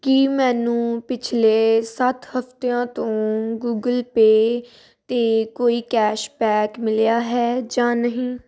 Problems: none marked